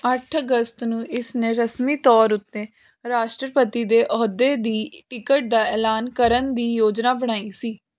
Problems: constant background noise